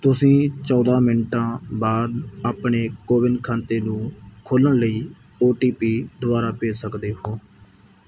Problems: background sounds at intervals